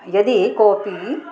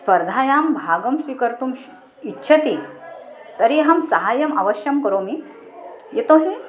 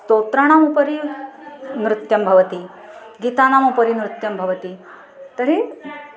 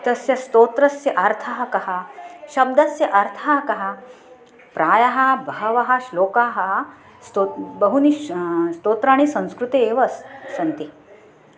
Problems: constant background noise, continuous background conversations